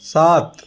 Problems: none marked